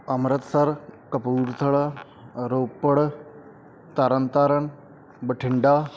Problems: background sounds at intervals